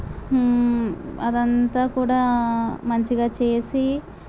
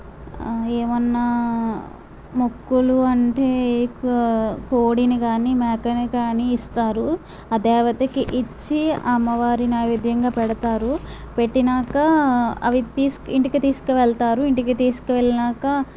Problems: none marked